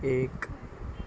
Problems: background sounds at intervals, low volume